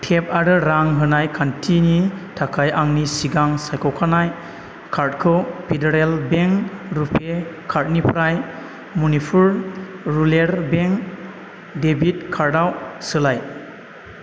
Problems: none marked